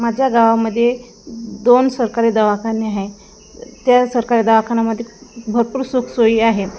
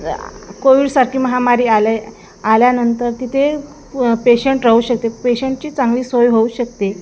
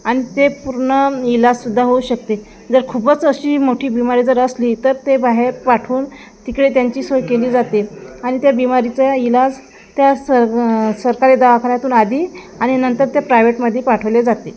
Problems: constant background noise